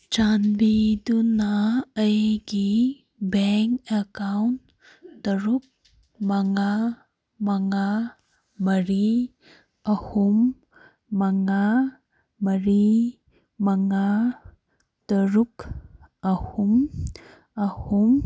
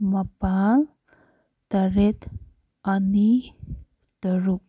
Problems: none marked